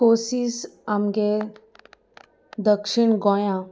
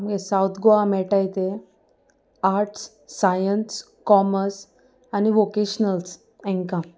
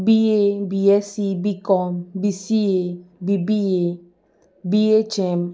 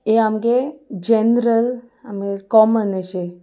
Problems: none marked